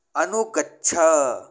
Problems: none marked